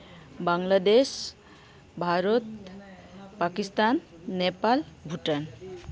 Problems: continuous background conversations